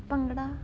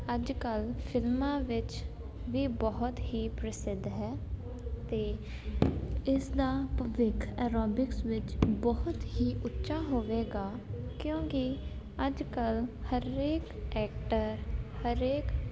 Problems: constant background noise